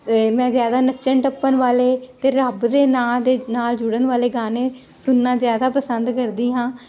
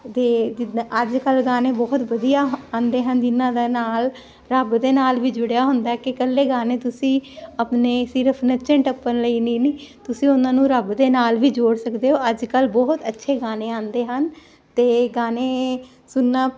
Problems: constant background noise